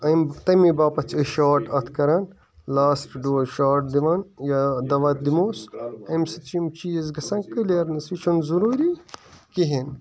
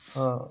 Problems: constant background noise, continuous background conversations